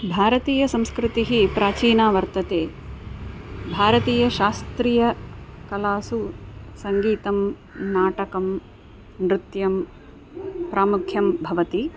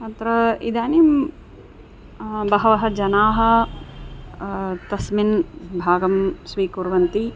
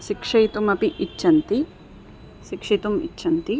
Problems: constant background noise, background conversations at intervals